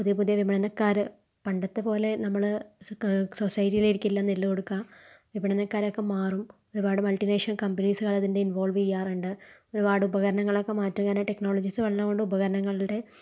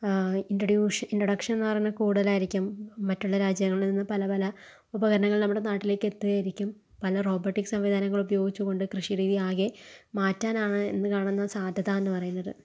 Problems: low volume